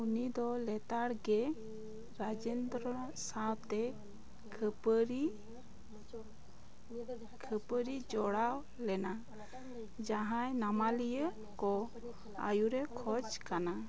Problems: constant background noise, continuous background conversations